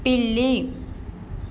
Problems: none marked